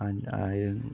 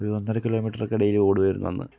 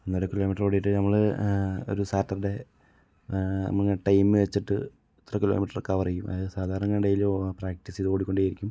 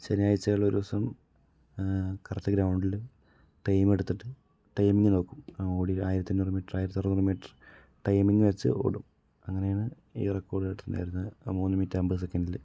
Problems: low volume